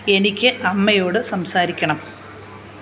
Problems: none marked